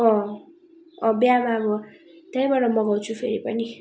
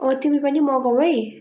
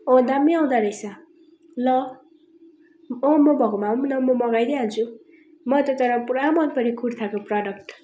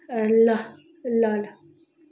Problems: constant background noise